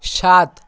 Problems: none marked